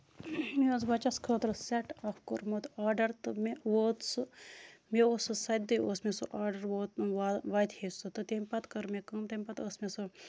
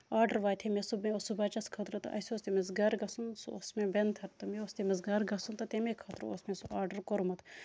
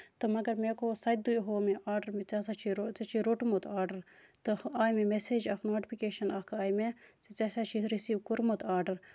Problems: constant background noise